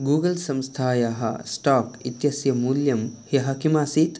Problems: none marked